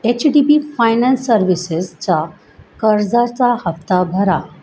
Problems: constant background noise